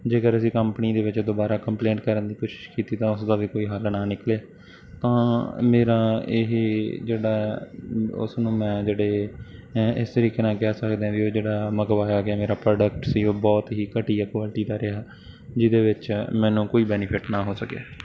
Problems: background sounds at intervals